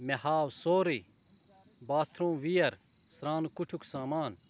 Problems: constant background noise, background conversations at intervals